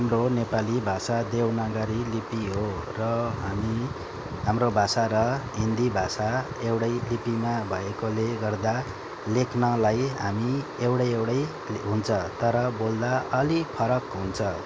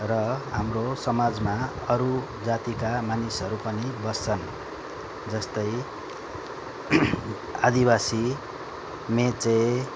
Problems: constant background noise